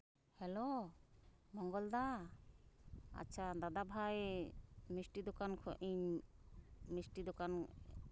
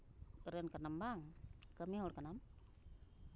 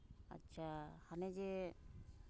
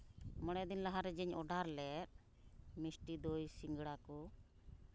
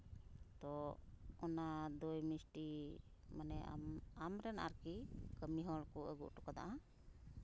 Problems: background sounds at intervals